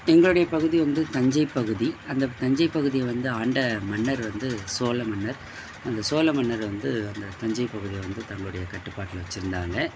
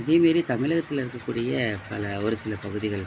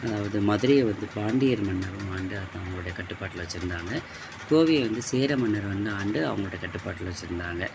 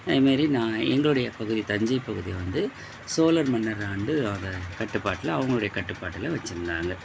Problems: constant background noise